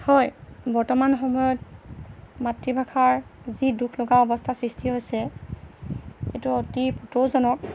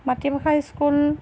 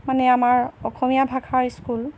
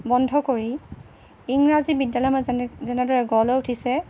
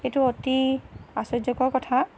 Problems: none marked